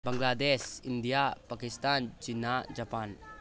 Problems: background conversations at intervals